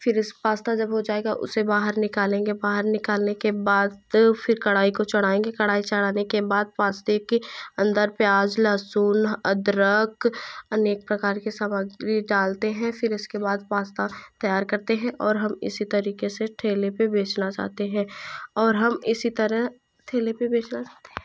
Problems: constant background noise